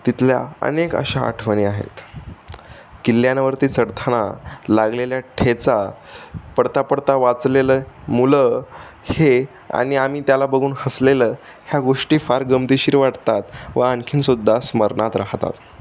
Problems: none marked